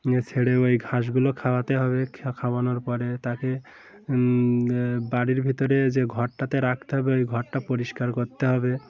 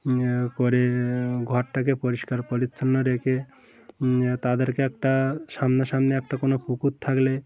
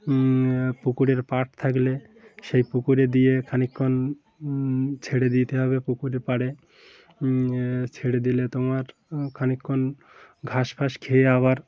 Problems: constant background noise, continuous background conversations